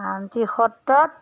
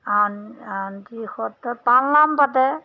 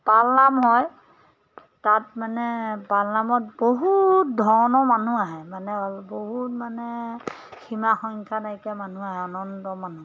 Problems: background sounds at intervals